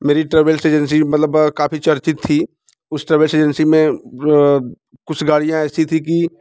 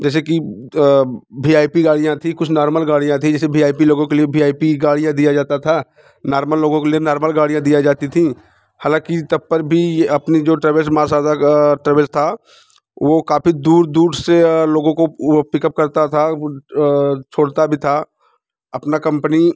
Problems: background sounds at intervals